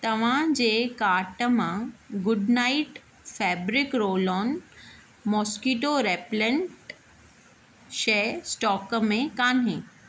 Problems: constant background noise